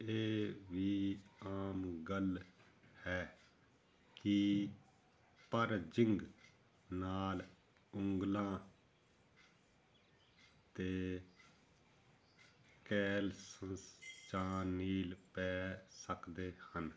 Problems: none marked